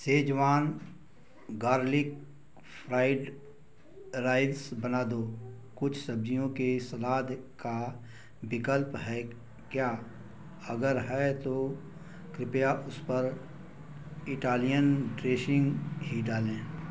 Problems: none marked